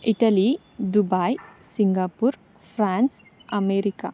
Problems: none marked